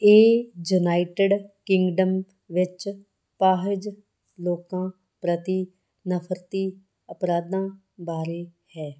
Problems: background sounds at intervals